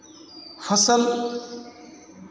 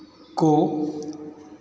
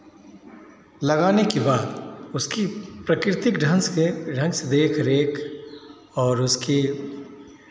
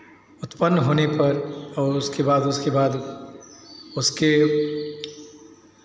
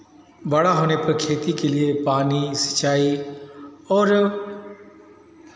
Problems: none marked